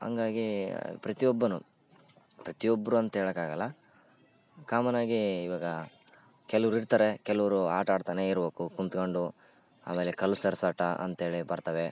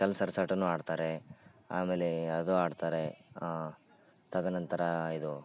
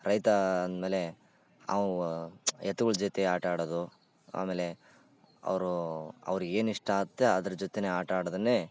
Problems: none marked